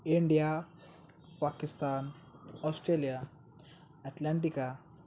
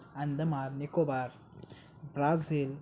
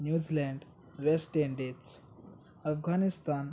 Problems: none marked